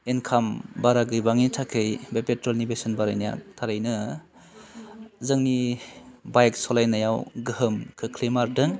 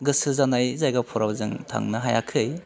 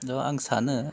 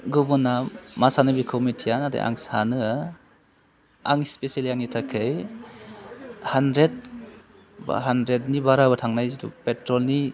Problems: constant background noise